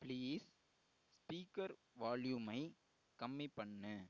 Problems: low volume